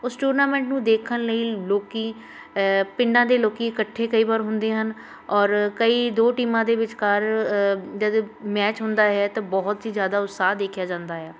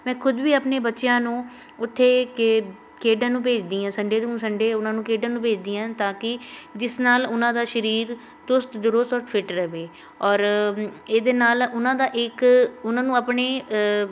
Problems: constant background noise